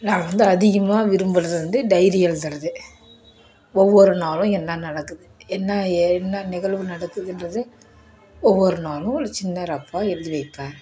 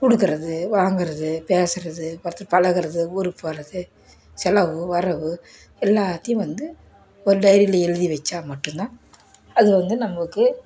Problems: none marked